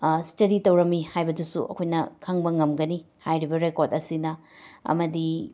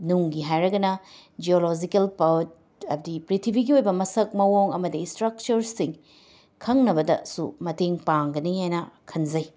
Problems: background sounds at intervals, background conversations at intervals